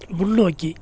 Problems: none marked